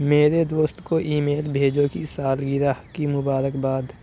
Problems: none marked